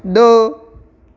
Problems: constant background noise